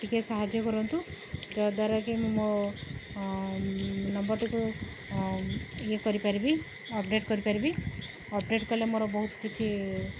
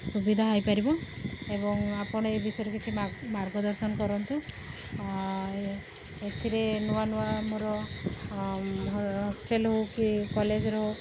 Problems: background sounds at intervals